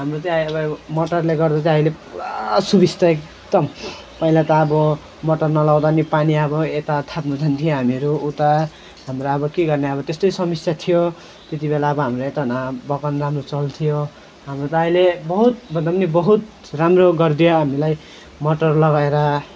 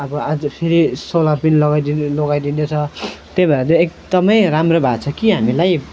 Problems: constant background noise